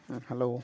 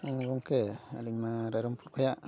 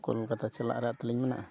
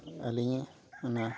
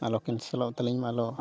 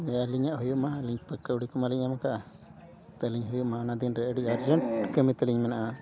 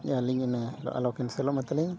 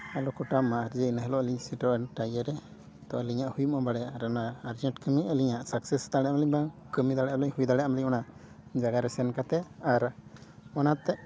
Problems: background sounds at intervals, background conversations at intervals